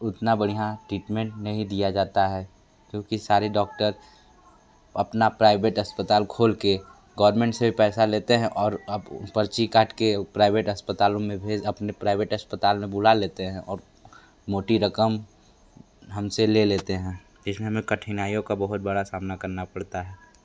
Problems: none marked